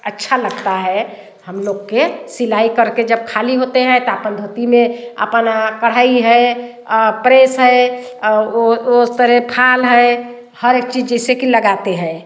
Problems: constant background noise, background conversations at intervals, echo